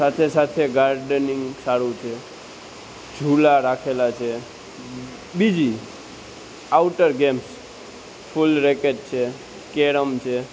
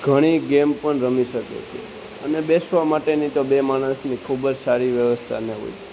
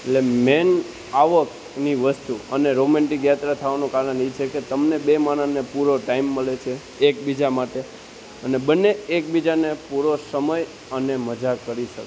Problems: constant background noise